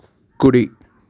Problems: constant background noise